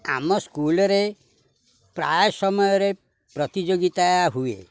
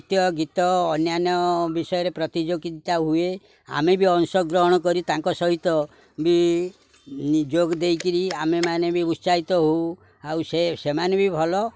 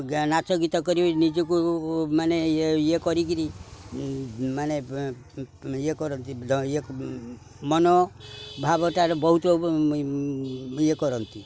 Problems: background sounds at intervals, background conversations at intervals